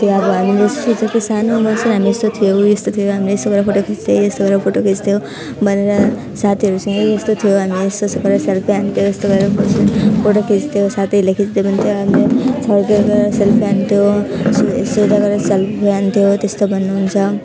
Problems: constant background noise